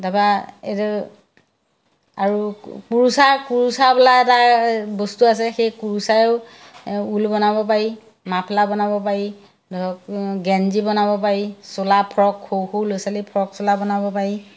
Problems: none marked